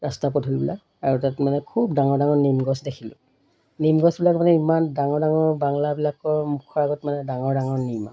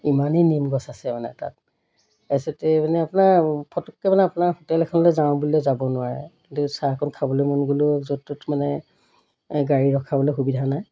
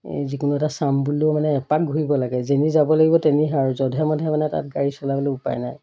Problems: none marked